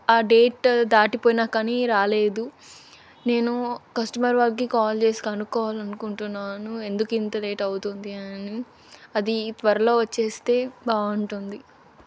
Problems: constant background noise